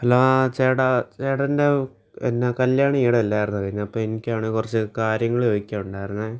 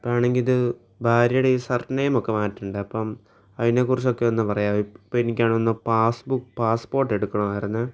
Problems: none marked